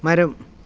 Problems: background sounds at intervals